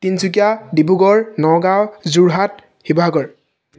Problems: none marked